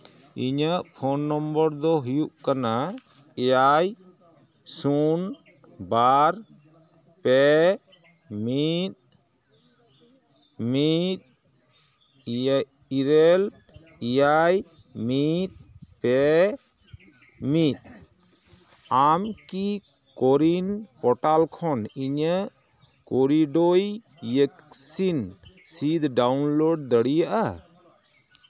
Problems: constant background noise